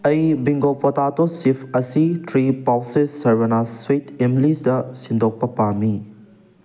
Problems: background sounds at intervals